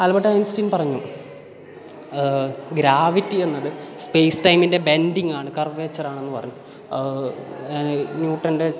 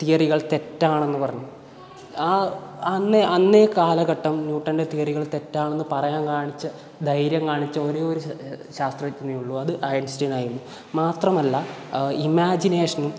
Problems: background sounds at intervals